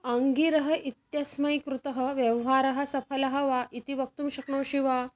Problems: background sounds at intervals